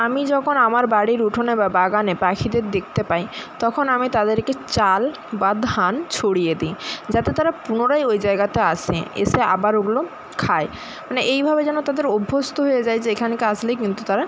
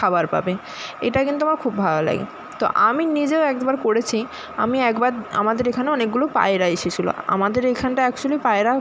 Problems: constant background noise